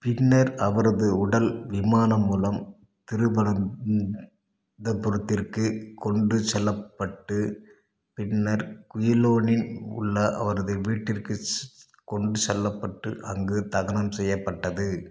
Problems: none marked